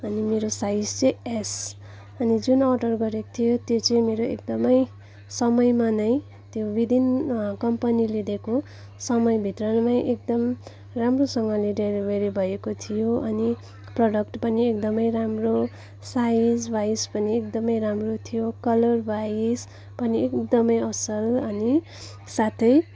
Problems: background sounds at intervals, background conversations at intervals